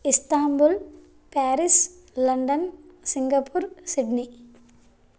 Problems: low volume